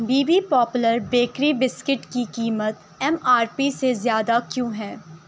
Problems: none marked